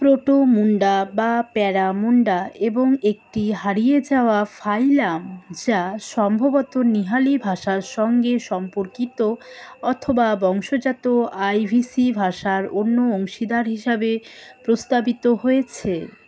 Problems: constant background noise, background conversations at intervals